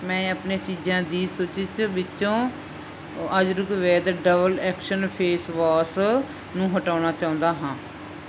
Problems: constant background noise